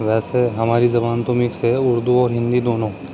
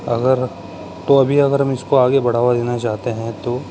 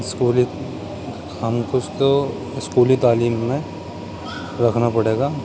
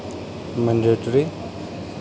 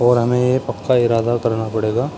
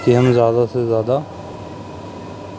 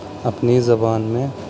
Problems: constant background noise